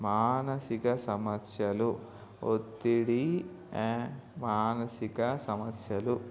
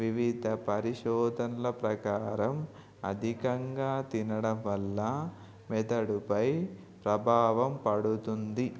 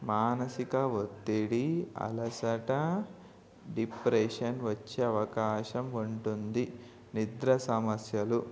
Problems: background sounds at intervals